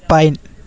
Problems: continuous background conversations